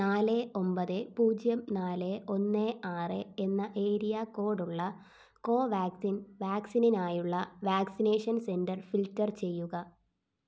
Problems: low volume